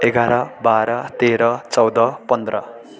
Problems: continuous background conversations